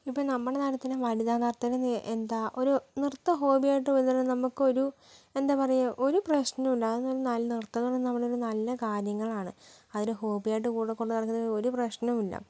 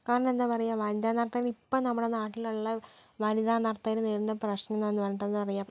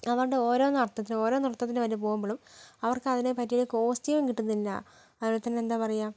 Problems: low volume